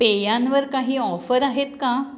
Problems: background sounds at intervals